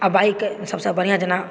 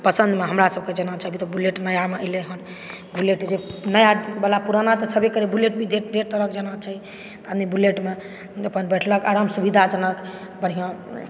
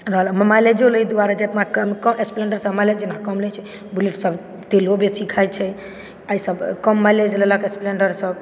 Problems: background sounds at intervals